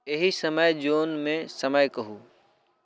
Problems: none marked